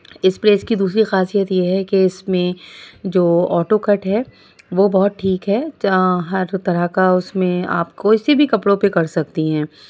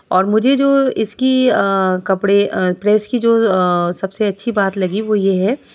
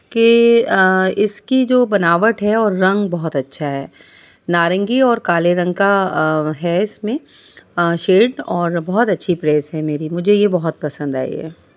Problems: background sounds at intervals